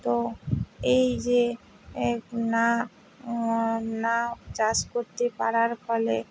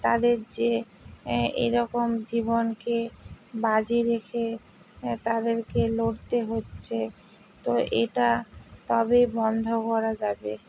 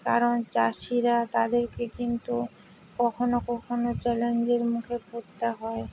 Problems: none marked